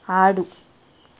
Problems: constant background noise